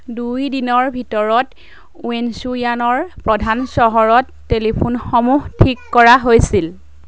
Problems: background conversations at intervals